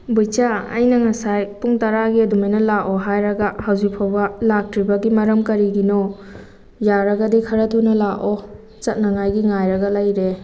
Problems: none marked